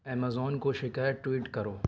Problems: low volume